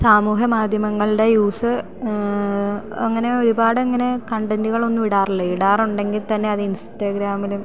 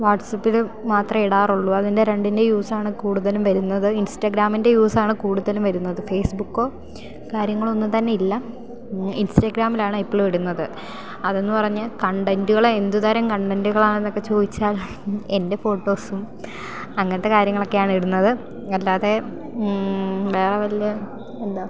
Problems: none marked